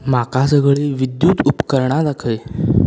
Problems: background sounds at intervals